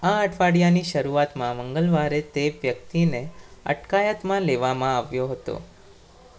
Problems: none marked